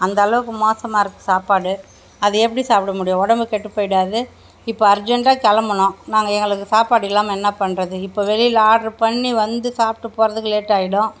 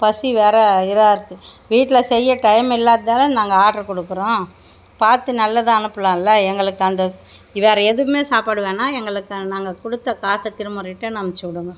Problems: none marked